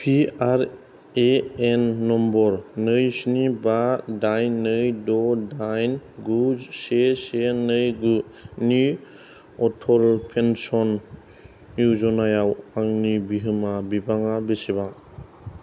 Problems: none marked